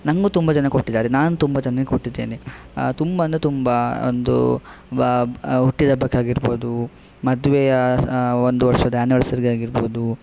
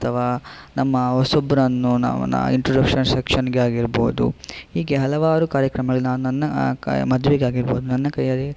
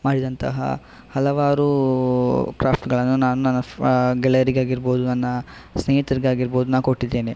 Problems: none marked